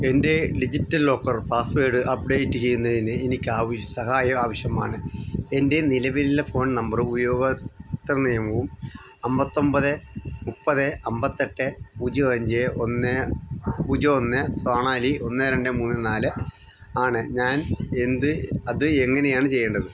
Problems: constant background noise, low volume